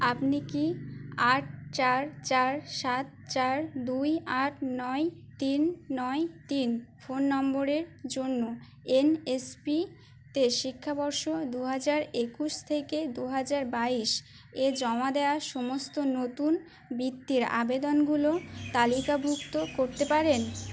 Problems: constant background noise